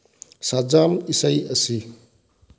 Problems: low volume